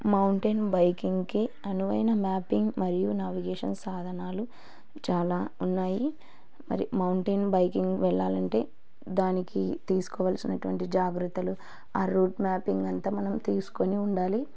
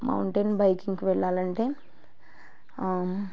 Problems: low volume